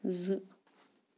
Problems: background sounds at intervals